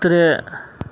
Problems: none marked